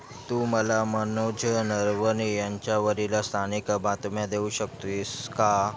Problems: background sounds at intervals